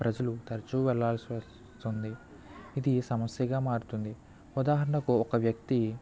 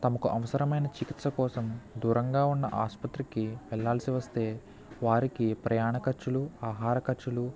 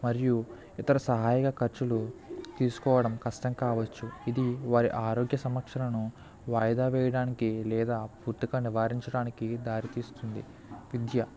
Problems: none marked